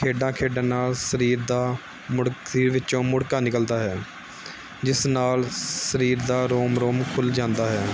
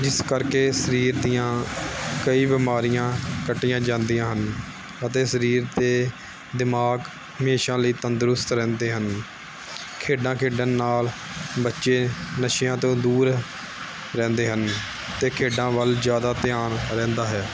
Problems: background sounds at intervals